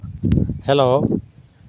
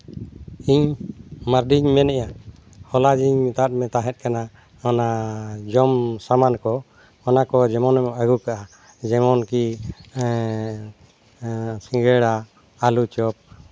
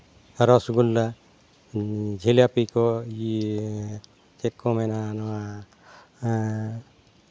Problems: background sounds at intervals